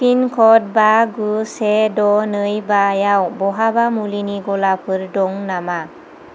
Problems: constant background noise